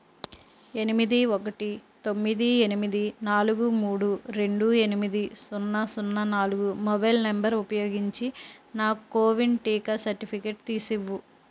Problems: constant background noise